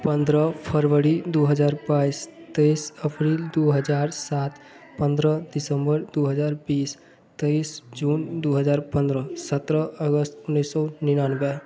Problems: background sounds at intervals